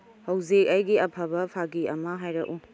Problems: low volume